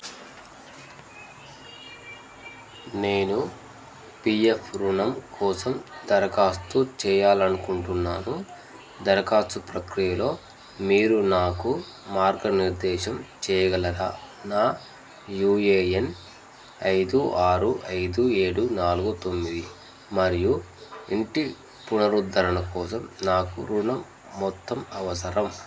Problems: constant background noise